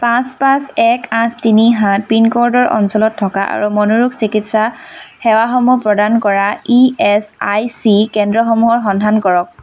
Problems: none marked